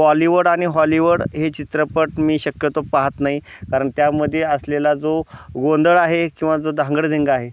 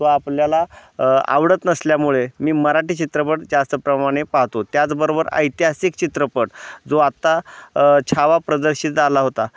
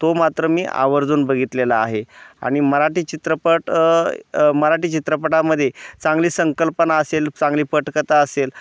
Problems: constant background noise, background conversations at intervals